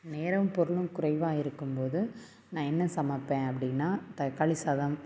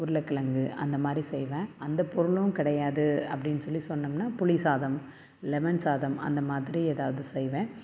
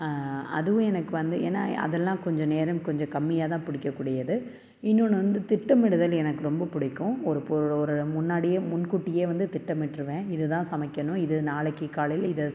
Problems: none marked